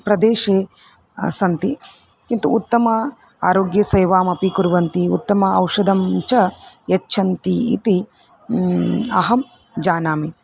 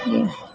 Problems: background sounds at intervals